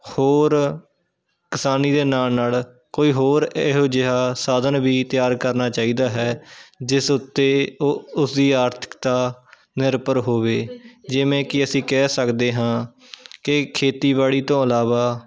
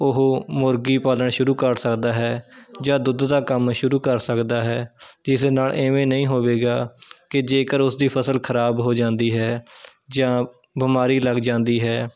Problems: continuous background conversations